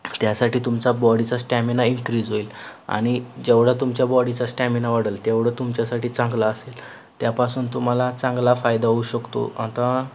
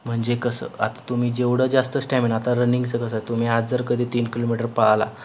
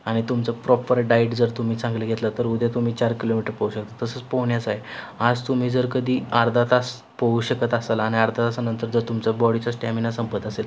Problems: none marked